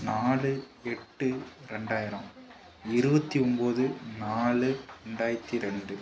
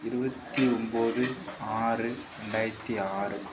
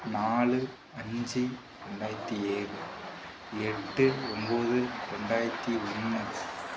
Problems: background sounds at intervals